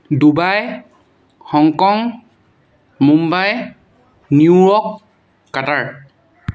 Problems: background sounds at intervals